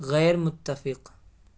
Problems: constant background noise